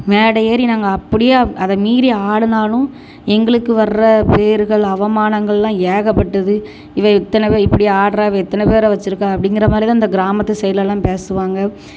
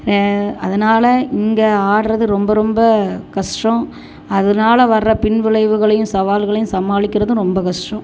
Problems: constant background noise